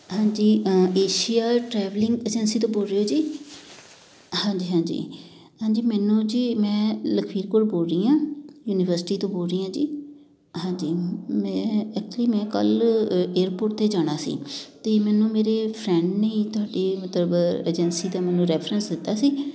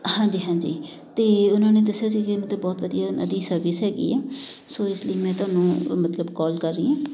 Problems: constant background noise, continuous background conversations